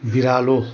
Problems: none marked